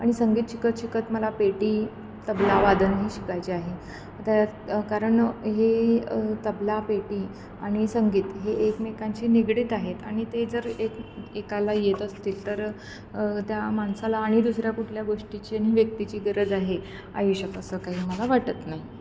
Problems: none marked